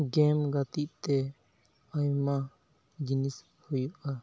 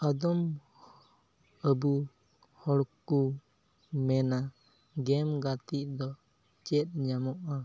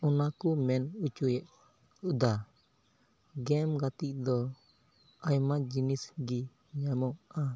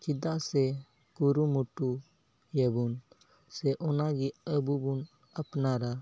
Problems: none marked